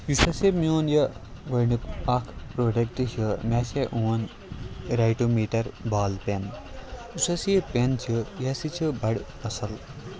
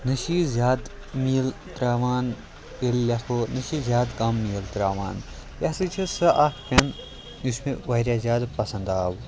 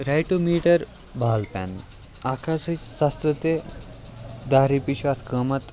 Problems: constant background noise